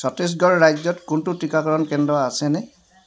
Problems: none marked